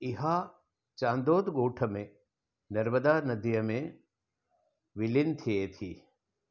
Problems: none marked